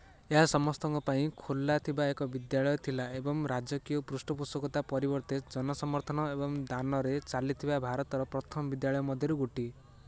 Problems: none marked